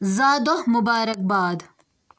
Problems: none marked